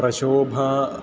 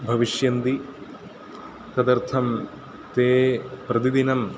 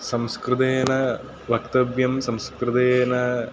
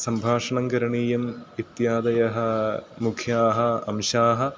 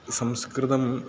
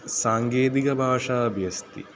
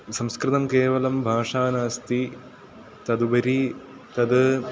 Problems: constant background noise, continuous background conversations